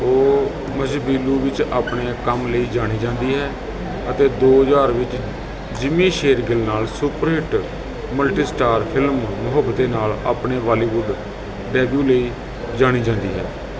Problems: none marked